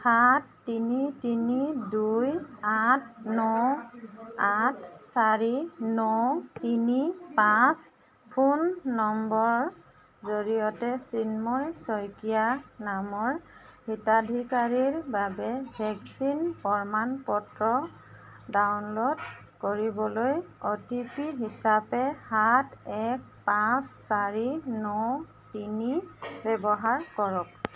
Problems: constant background noise, background conversations at intervals